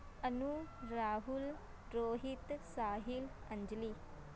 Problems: constant background noise